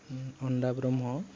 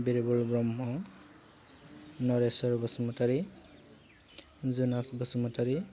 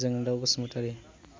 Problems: low volume